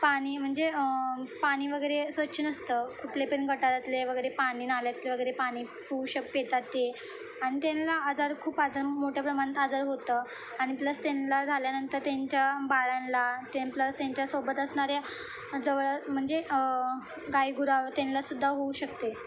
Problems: none marked